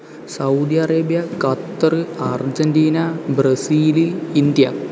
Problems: constant background noise